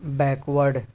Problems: none marked